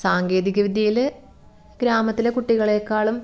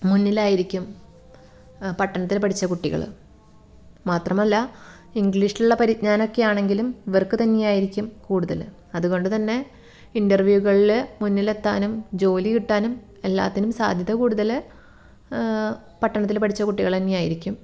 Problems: background sounds at intervals